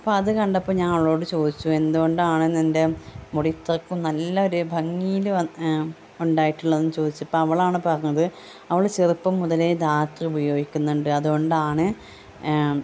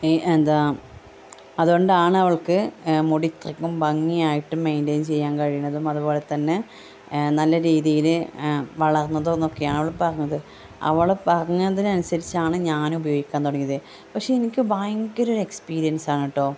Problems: background sounds at intervals